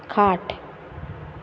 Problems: none marked